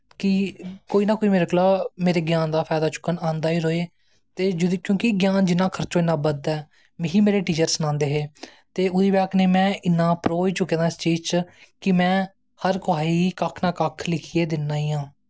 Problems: none marked